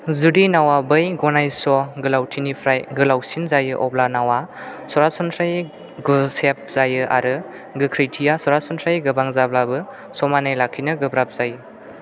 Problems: none marked